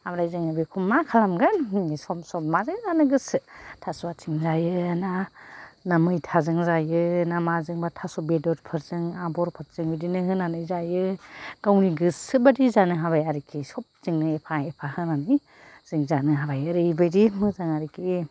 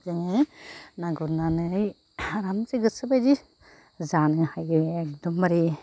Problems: none marked